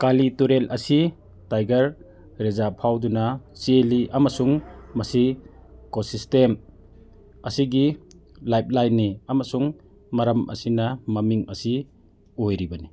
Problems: background sounds at intervals